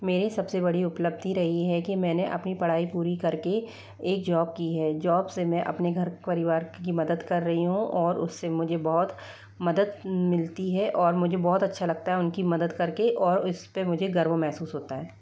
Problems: none marked